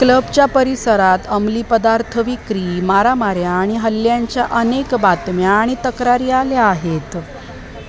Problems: constant background noise, continuous background conversations